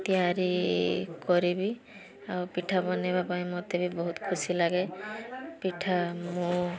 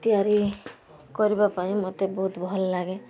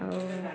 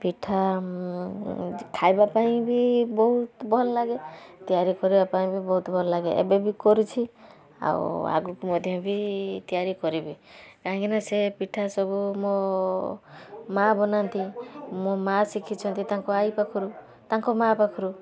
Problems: constant background noise, continuous background conversations